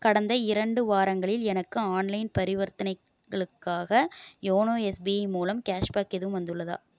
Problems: none marked